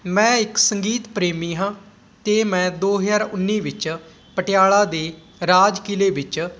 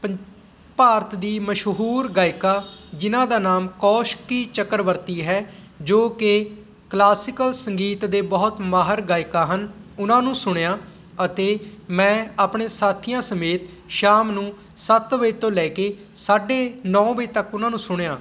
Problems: background sounds at intervals